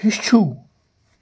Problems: background sounds at intervals